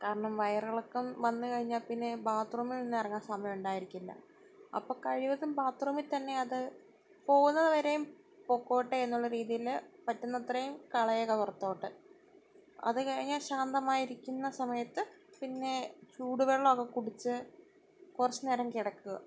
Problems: none marked